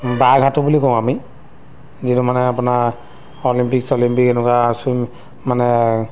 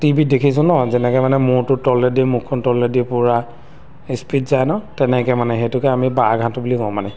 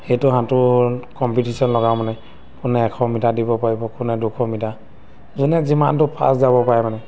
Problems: background sounds at intervals